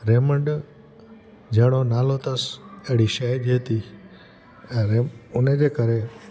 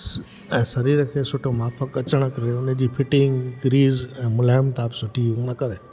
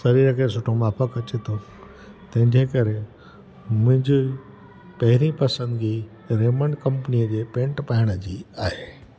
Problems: constant background noise, echo